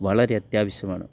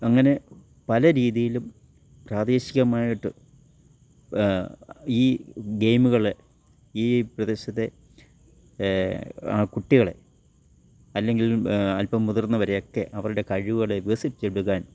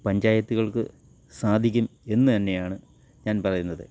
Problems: none marked